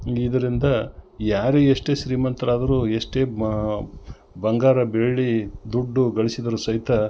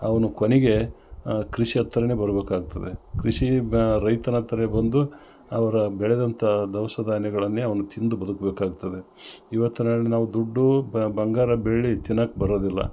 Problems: none marked